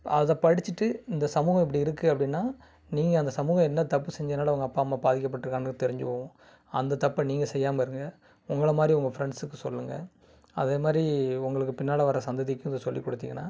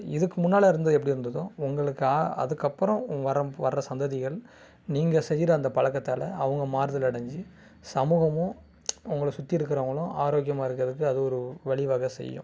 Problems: none marked